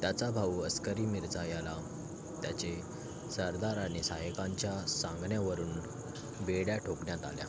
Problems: none marked